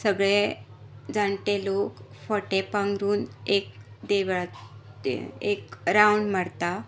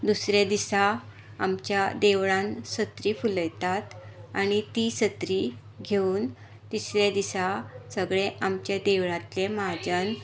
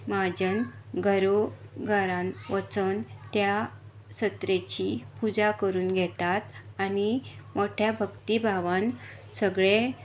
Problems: background sounds at intervals